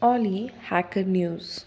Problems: background sounds at intervals